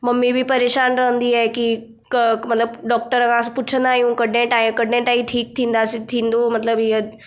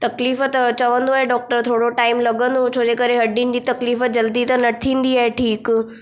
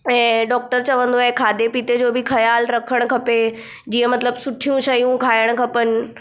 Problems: none marked